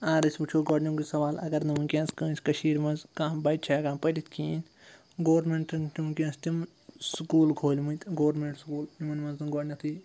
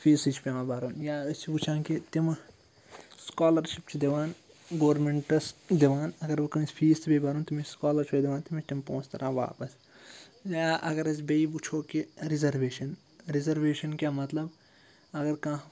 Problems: low volume